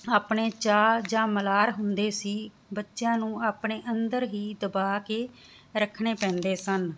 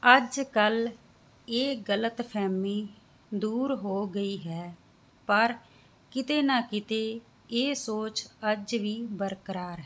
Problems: background sounds at intervals